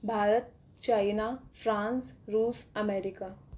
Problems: none marked